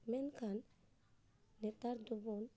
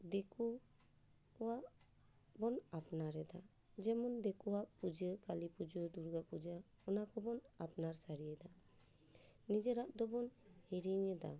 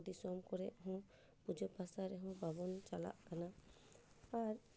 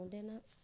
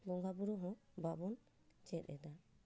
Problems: low volume